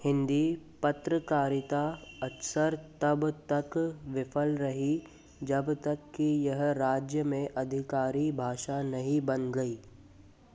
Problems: constant background noise